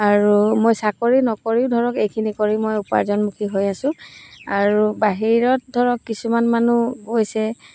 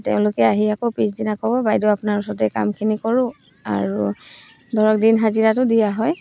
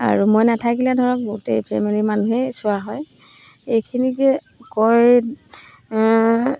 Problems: none marked